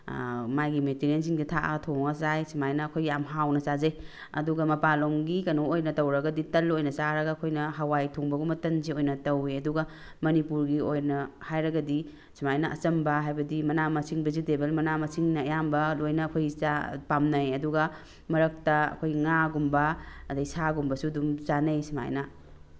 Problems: background sounds at intervals